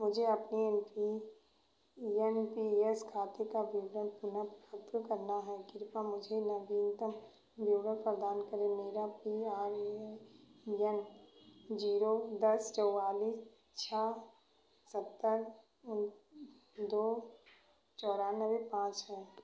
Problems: background sounds at intervals, echo